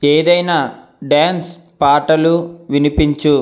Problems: none marked